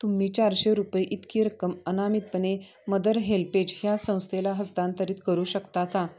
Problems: continuous background conversations